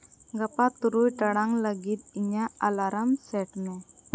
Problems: constant background noise